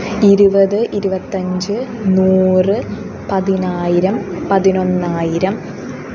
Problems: constant background noise